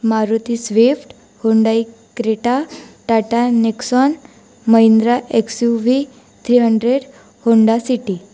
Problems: none marked